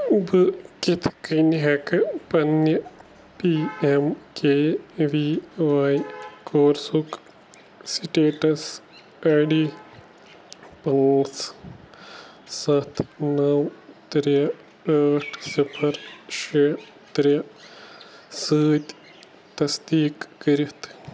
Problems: constant background noise